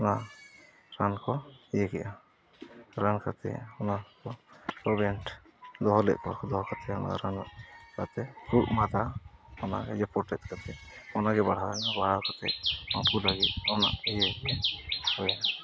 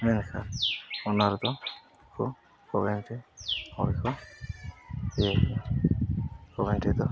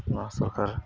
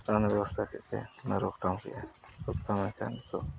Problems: constant background noise, low volume